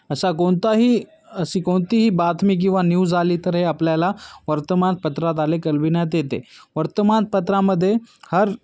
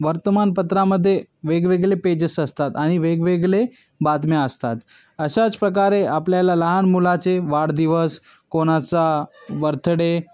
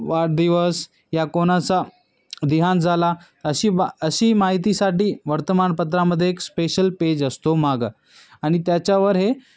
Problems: background sounds at intervals, background conversations at intervals